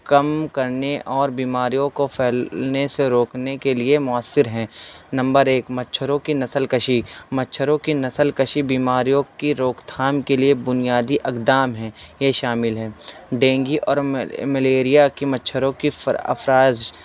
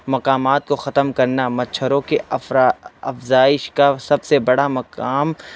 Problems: constant background noise, background conversations at intervals